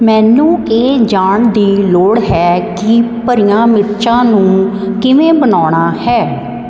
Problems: constant background noise